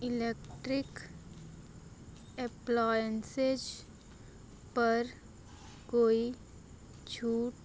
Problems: low volume